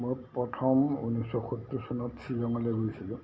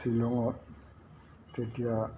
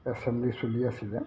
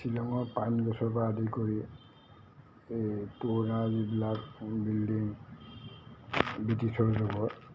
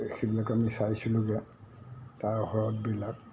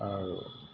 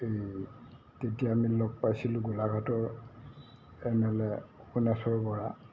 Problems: constant background noise, low volume